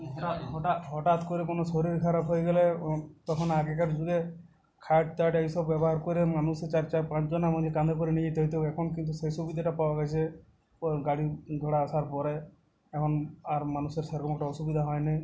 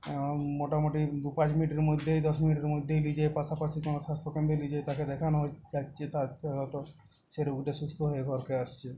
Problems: none marked